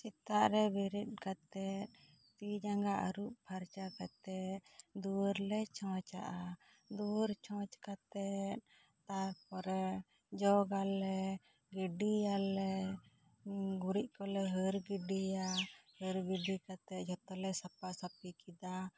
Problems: low volume